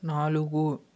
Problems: constant background noise